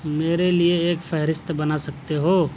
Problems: none marked